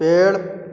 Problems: constant background noise